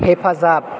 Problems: constant background noise